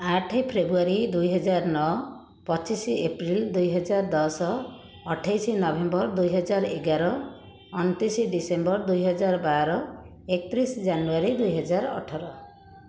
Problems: constant background noise, continuous background conversations